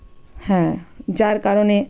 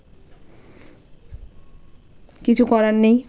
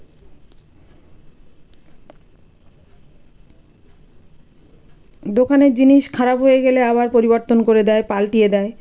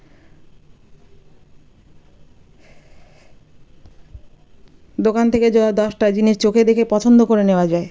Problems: none marked